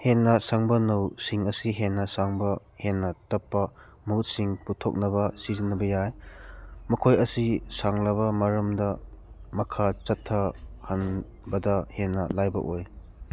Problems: background sounds at intervals